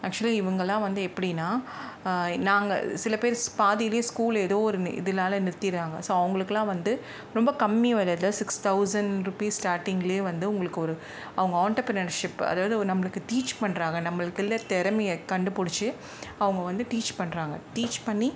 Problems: background sounds at intervals